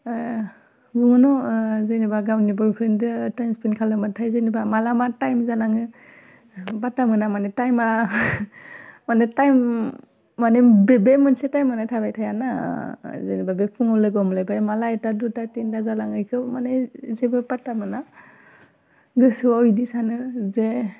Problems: constant background noise